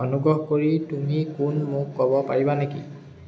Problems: constant background noise